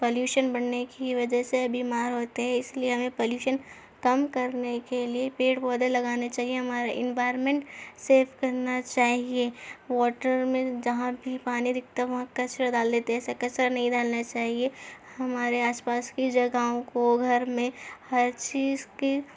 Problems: none marked